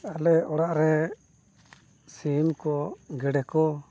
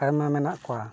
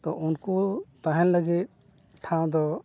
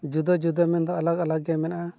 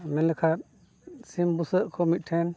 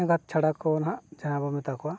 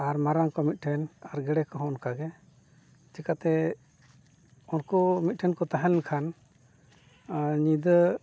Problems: none marked